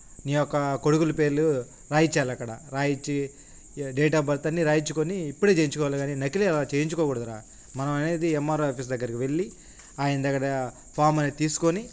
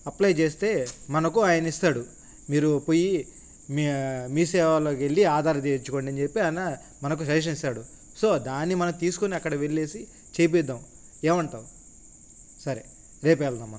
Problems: constant background noise